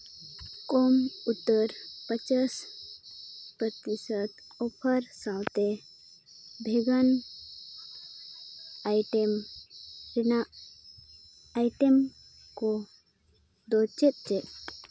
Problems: constant background noise